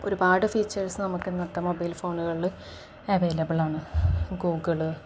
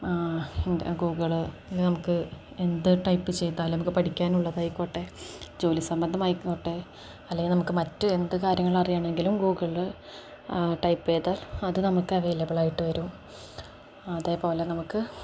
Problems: none marked